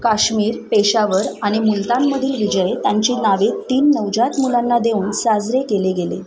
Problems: constant background noise, continuous background conversations